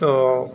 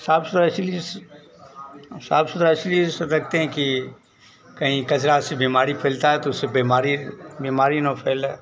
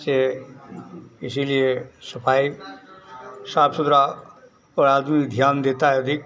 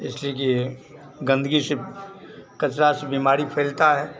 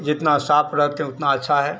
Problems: constant background noise